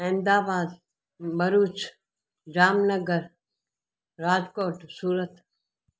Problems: none marked